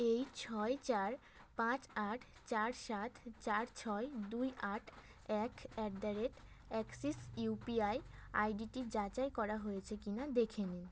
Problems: none marked